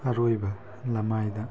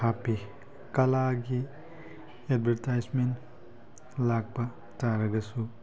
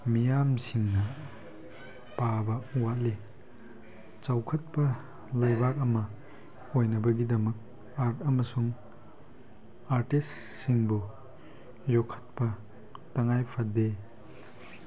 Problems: constant background noise